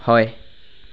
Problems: background sounds at intervals